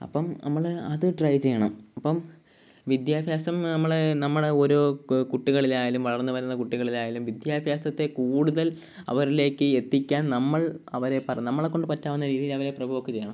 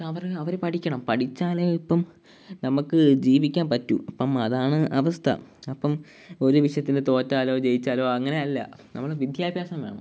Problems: background sounds at intervals